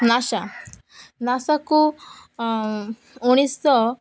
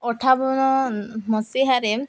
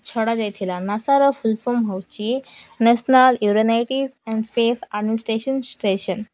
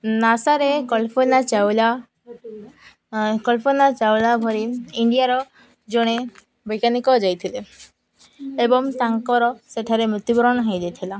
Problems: none marked